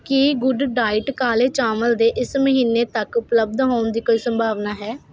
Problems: constant background noise